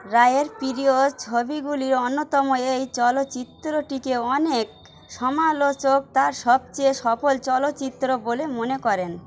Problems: constant background noise